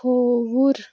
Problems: constant background noise